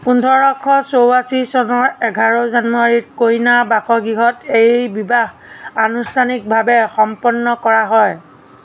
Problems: none marked